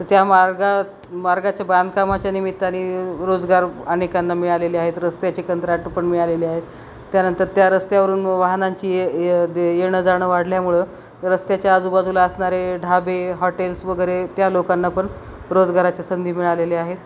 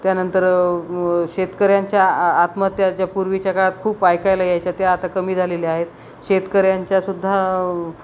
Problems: none marked